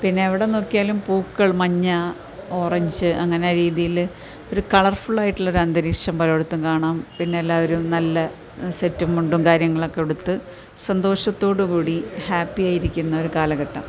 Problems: background sounds at intervals